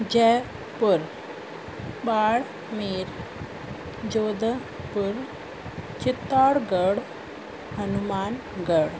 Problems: constant background noise